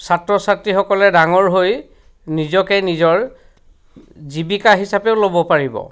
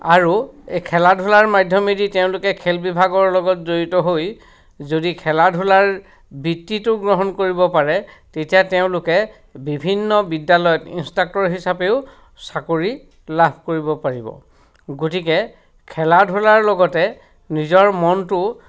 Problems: background sounds at intervals